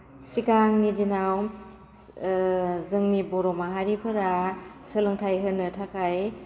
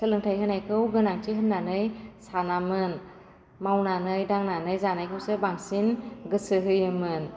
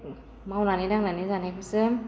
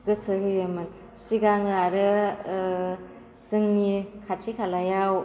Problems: constant background noise